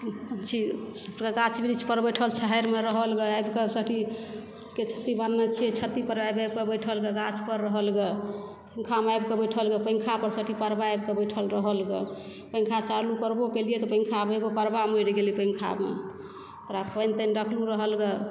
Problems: background sounds at intervals